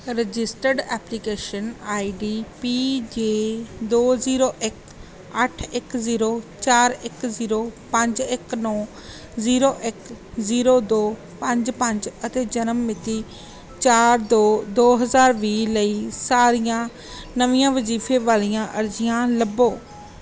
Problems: background sounds at intervals